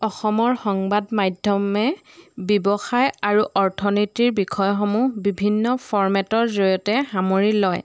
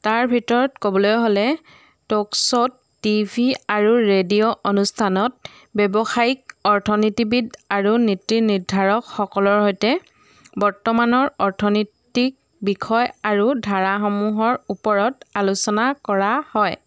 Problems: none marked